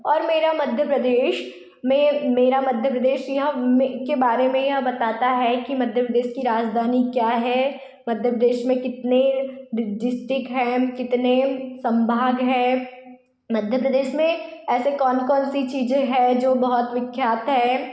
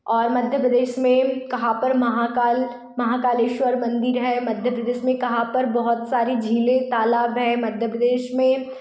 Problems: none marked